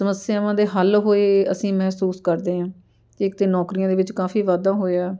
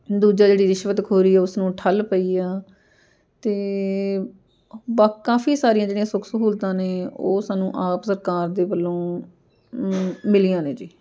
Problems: constant background noise